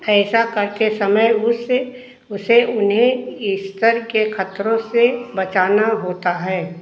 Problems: echo